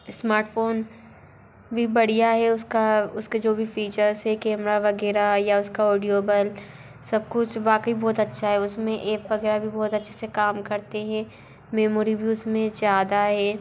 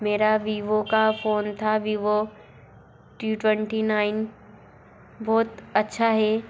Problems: constant background noise, continuous background conversations